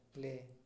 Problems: low volume